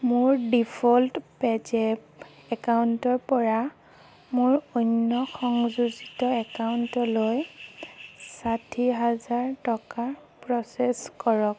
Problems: background sounds at intervals